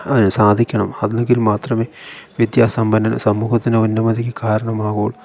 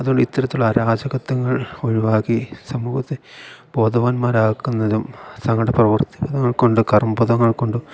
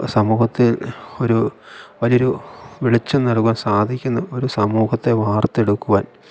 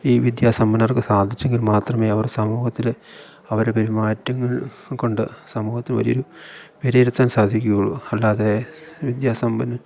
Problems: none marked